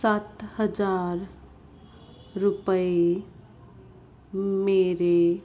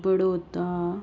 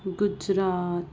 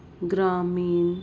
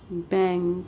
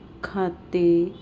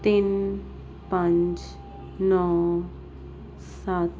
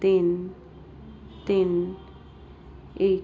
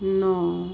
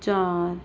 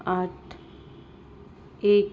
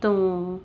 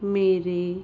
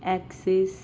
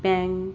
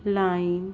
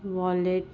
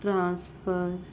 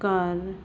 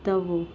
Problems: constant background noise